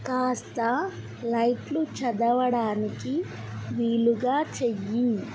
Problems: constant background noise